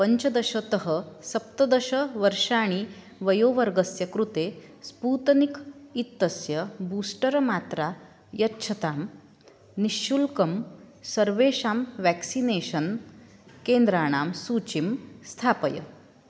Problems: none marked